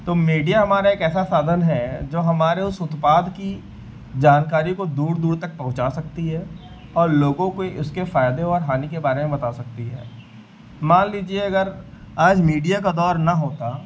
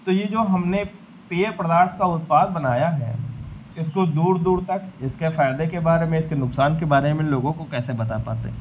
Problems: none marked